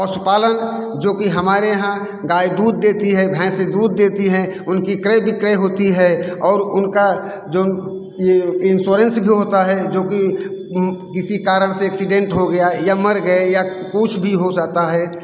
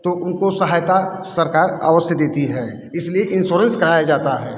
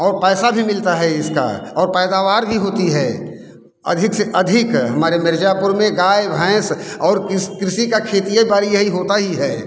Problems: constant background noise, echo